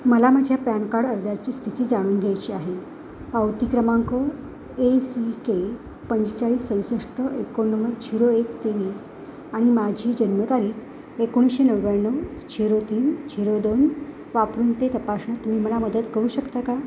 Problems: constant background noise, background conversations at intervals